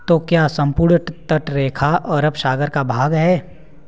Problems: background sounds at intervals, background conversations at intervals